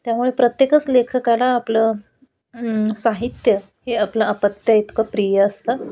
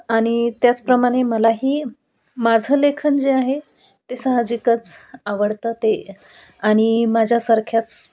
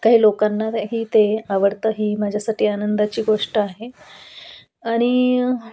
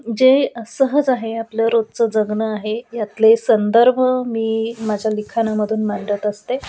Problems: none marked